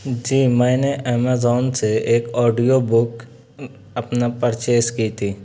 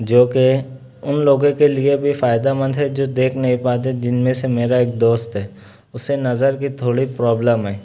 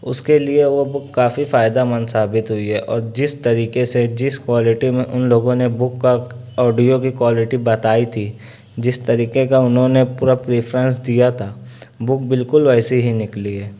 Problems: none marked